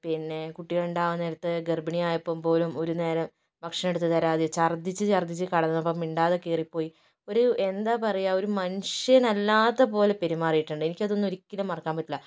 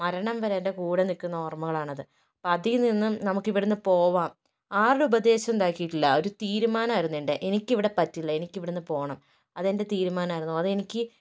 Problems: none marked